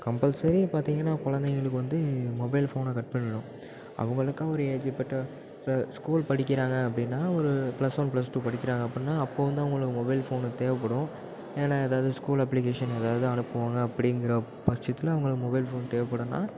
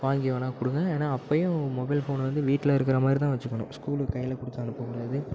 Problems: background sounds at intervals